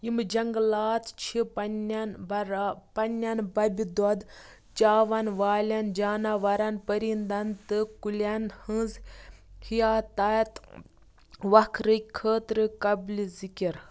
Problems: background sounds at intervals